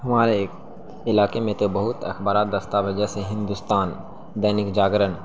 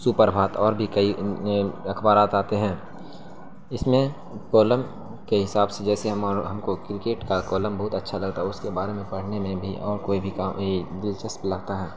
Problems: constant background noise